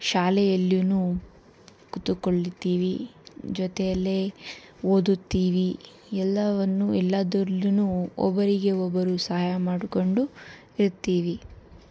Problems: none marked